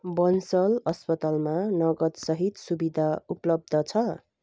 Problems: none marked